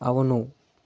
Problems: none marked